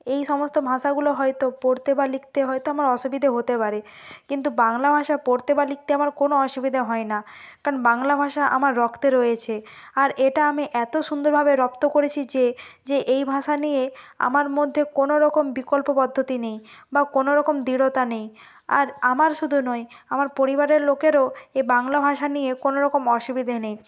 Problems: background sounds at intervals